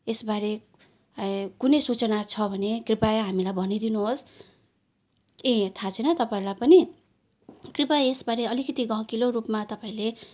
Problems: none marked